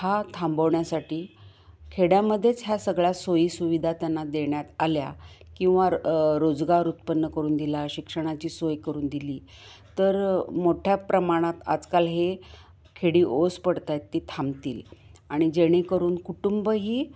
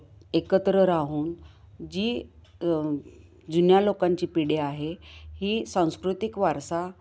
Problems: constant background noise